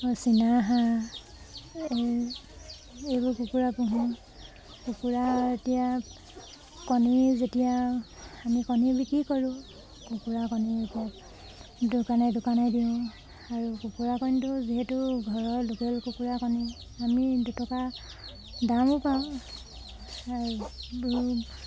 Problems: constant background noise